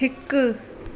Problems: constant background noise